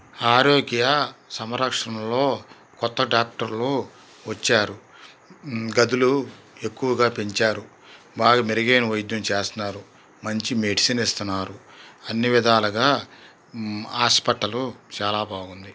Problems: constant background noise